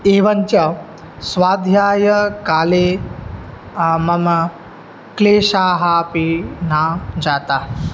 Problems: none marked